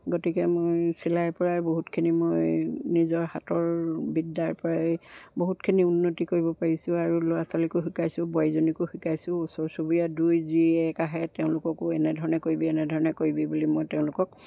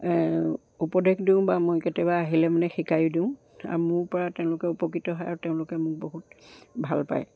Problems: background sounds at intervals